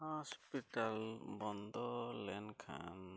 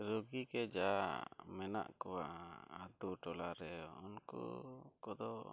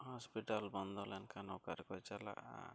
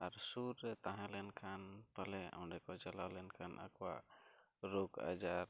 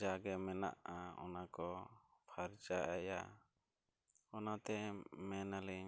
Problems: none marked